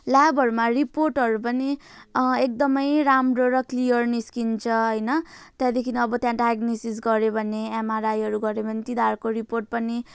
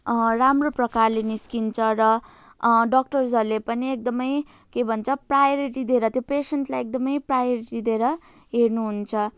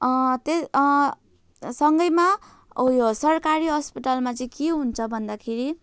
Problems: continuous background conversations